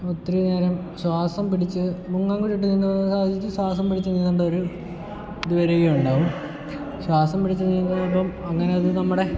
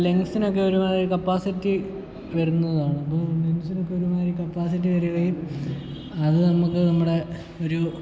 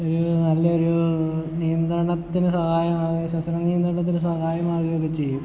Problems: background sounds at intervals, echo, low volume